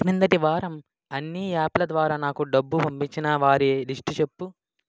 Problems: background sounds at intervals